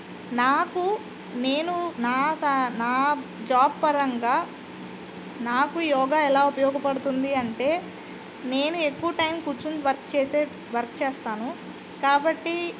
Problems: constant background noise